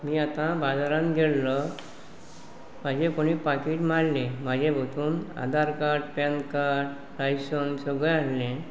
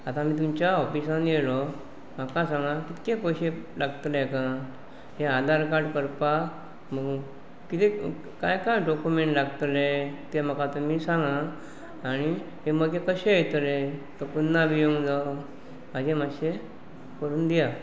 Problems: background sounds at intervals